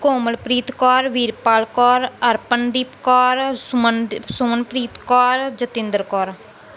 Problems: background sounds at intervals